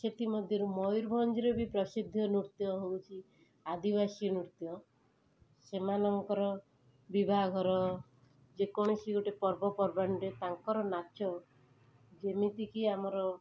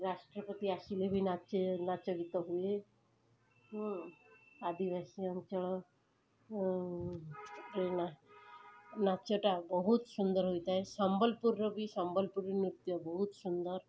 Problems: background sounds at intervals, background conversations at intervals